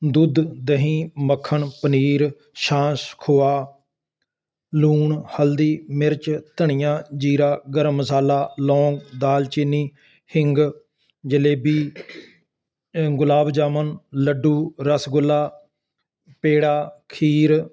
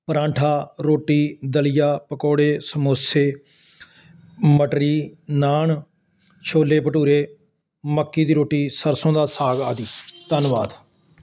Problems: constant background noise